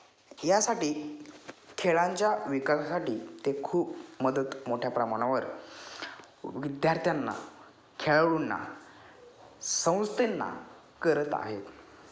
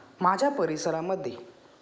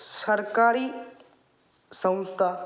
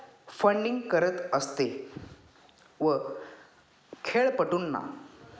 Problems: background sounds at intervals, background conversations at intervals